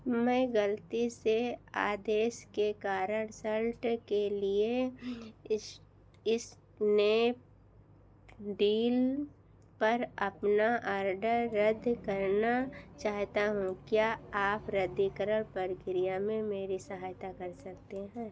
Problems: none marked